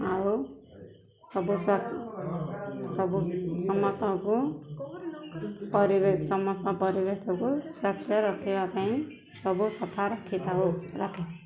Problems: background sounds at intervals, background conversations at intervals